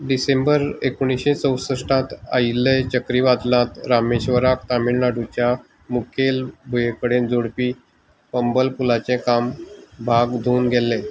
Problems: constant background noise